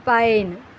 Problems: constant background noise